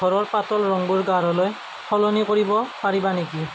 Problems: constant background noise